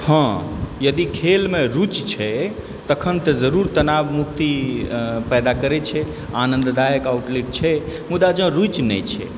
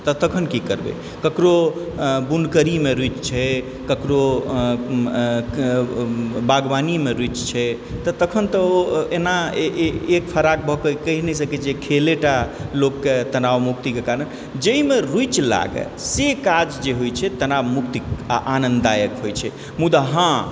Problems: background sounds at intervals, background conversations at intervals